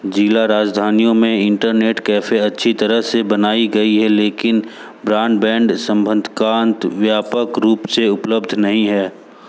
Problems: none marked